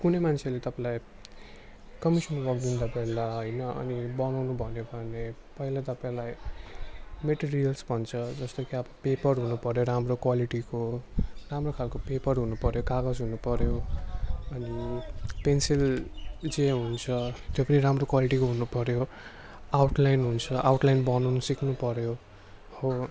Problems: constant background noise